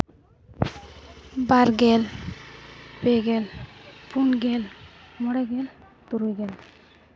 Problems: constant background noise